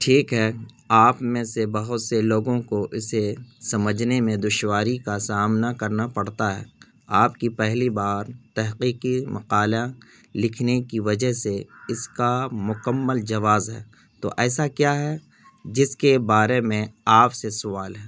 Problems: none marked